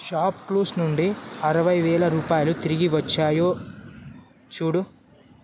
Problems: constant background noise